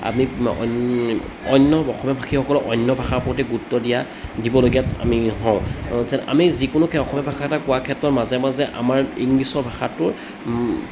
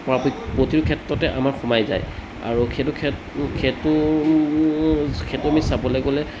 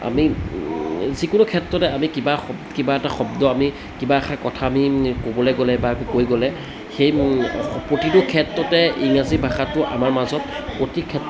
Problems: background sounds at intervals, background conversations at intervals